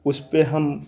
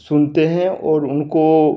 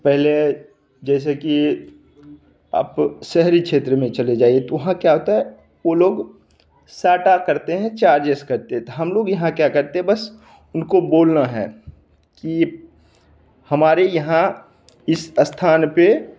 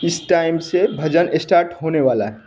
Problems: none marked